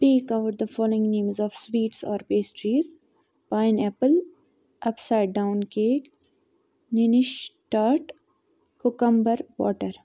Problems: none marked